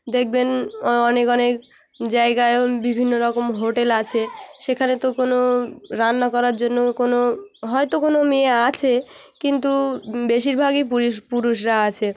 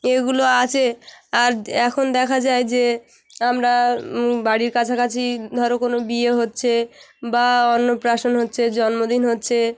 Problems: constant background noise, background conversations at intervals